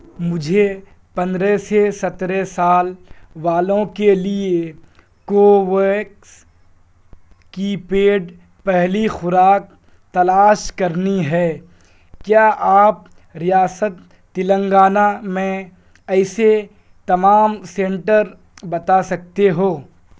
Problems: background sounds at intervals